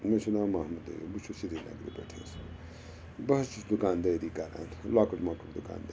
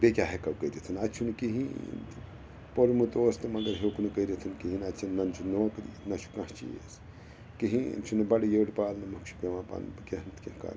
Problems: constant background noise